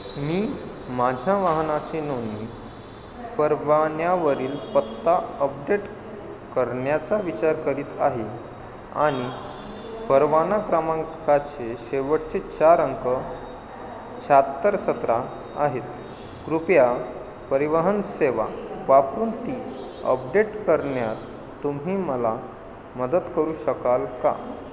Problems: constant background noise